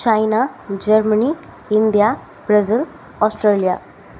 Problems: constant background noise